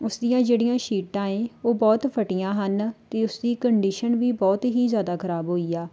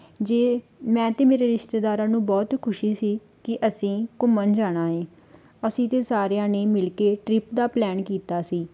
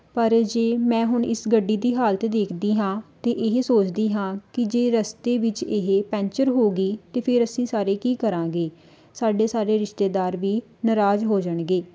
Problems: background sounds at intervals